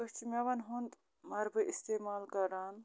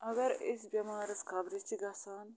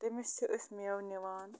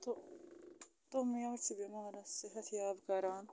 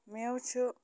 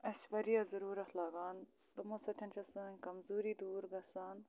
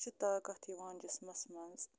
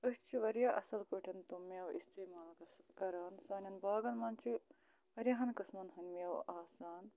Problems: none marked